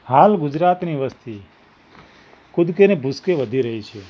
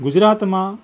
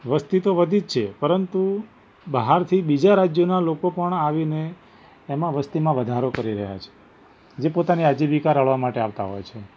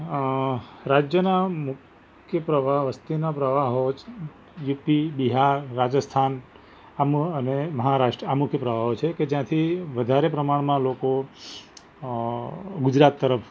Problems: background sounds at intervals